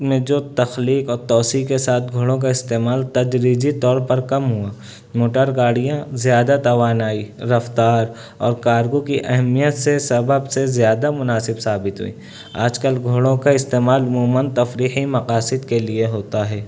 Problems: none marked